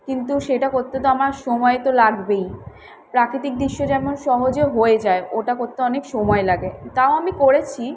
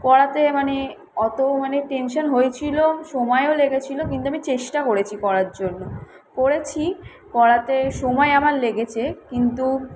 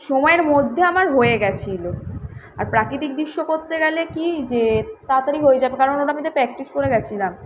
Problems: none marked